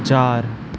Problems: constant background noise